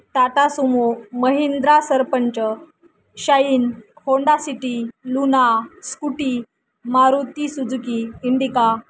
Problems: none marked